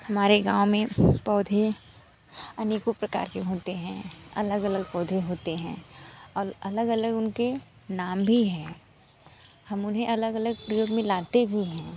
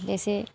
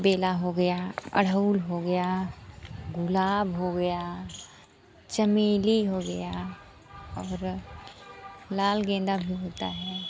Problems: constant background noise, background conversations at intervals